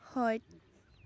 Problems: low volume